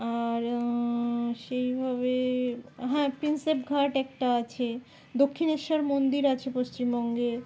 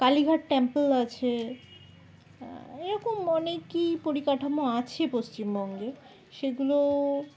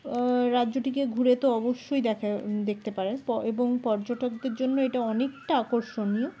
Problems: background conversations at intervals